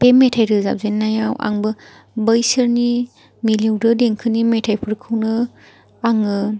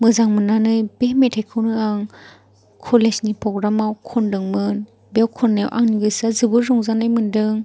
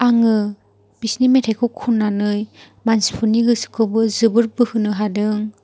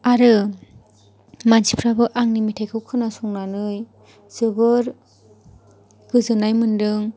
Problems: none marked